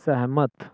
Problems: none marked